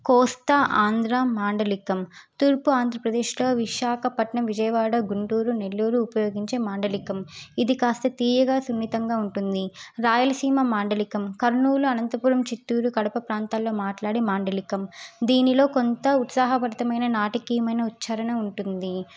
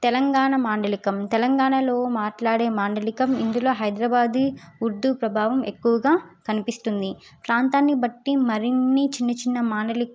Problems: none marked